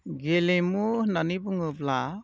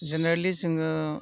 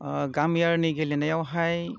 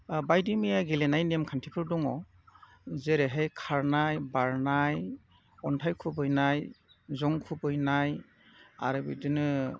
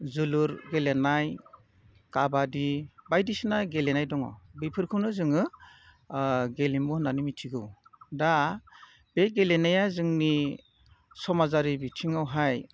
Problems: none marked